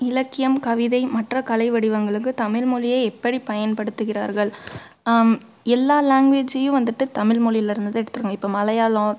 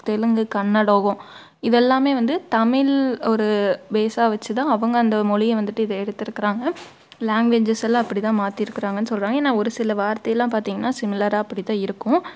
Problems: background sounds at intervals